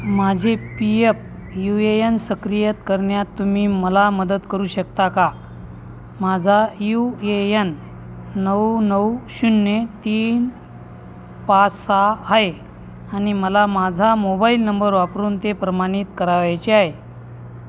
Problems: constant background noise, continuous background conversations